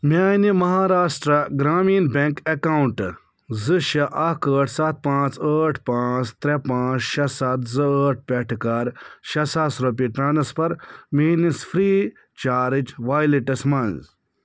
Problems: none marked